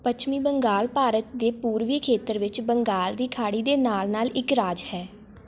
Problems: constant background noise